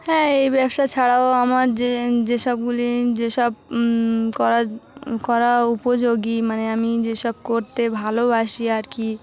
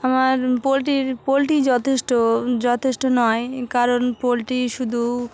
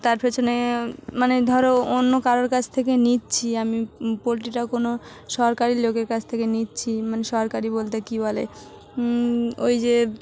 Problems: none marked